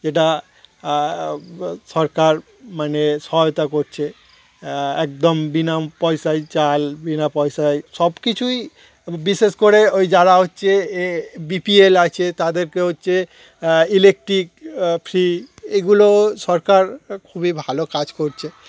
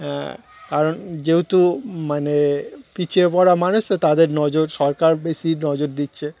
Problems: none marked